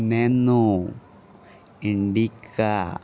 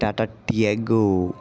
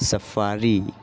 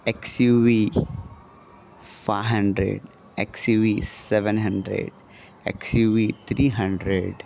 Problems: constant background noise, continuous background conversations